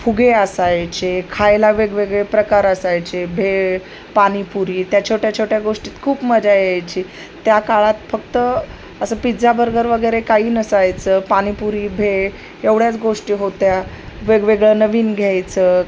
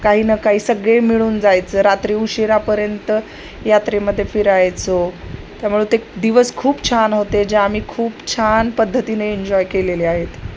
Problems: none marked